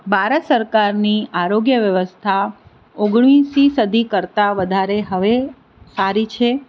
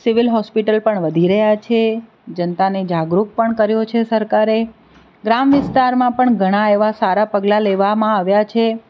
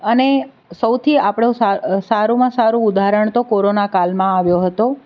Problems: none marked